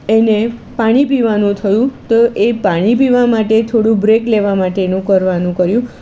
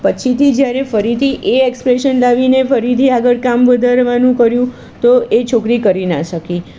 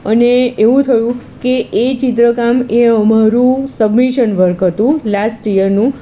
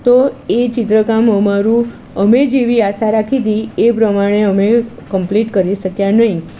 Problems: constant background noise